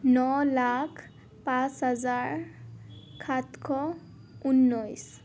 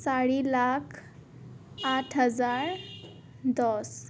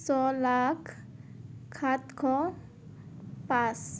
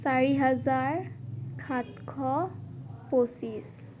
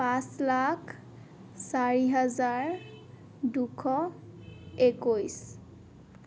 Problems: background sounds at intervals